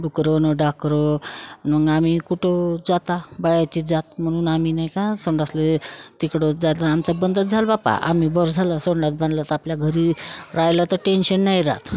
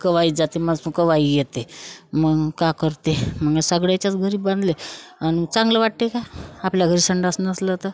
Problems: constant background noise